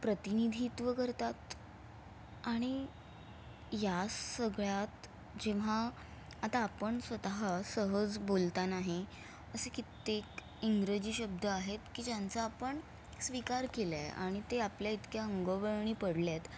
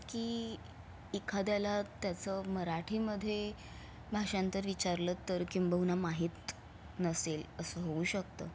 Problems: constant background noise